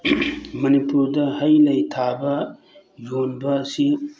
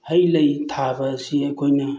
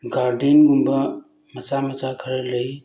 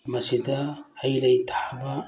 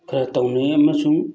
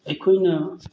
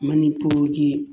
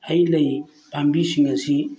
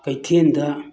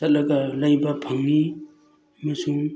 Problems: none marked